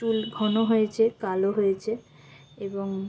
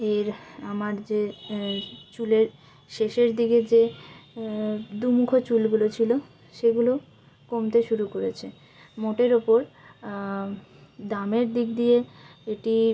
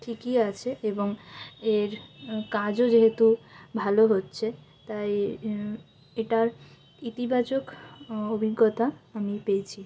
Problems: constant background noise